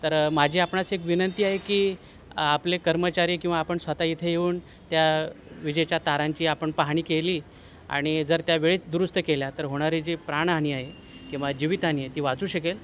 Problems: constant background noise